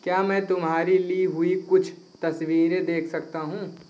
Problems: constant background noise